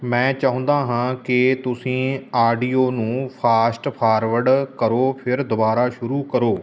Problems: none marked